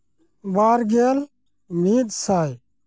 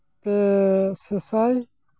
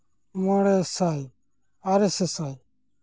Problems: none marked